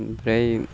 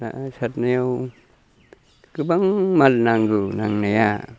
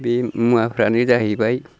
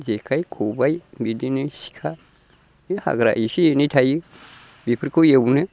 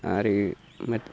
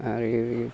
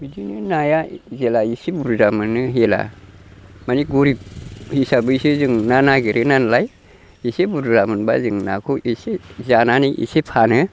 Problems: constant background noise